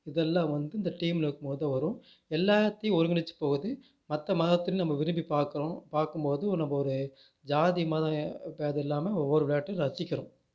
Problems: low volume